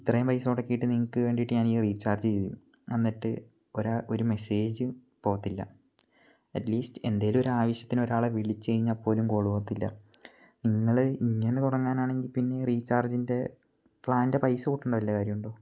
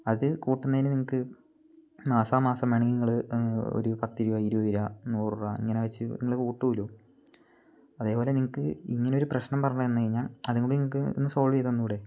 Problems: low volume